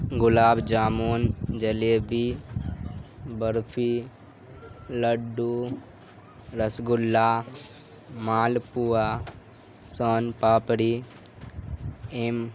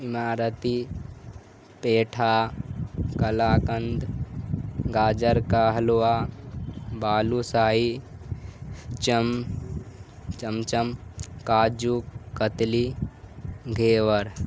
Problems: constant background noise